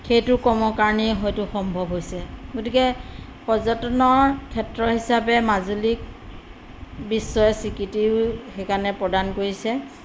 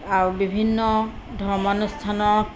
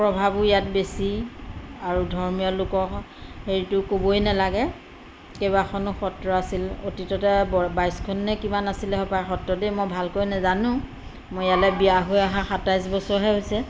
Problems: none marked